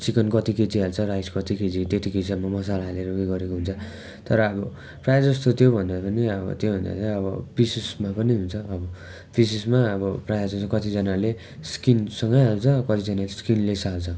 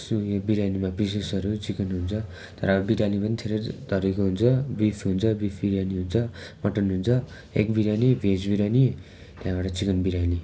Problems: constant background noise, continuous background conversations